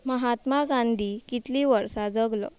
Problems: background sounds at intervals